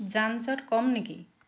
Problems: constant background noise